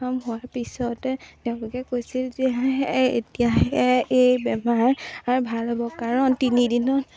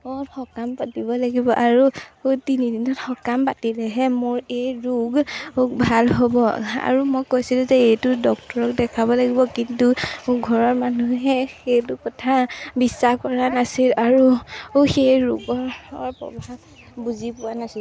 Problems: none marked